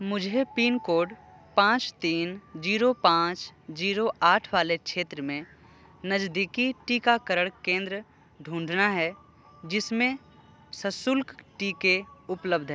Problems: background sounds at intervals